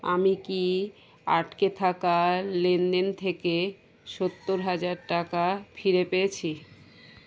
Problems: constant background noise